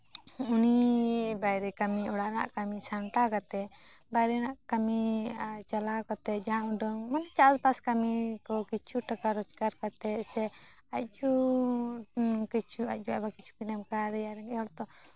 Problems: none marked